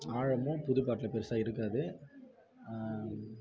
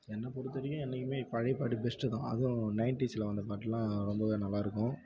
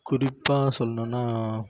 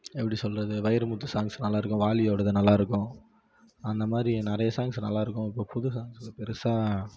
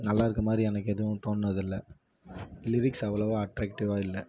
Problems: none marked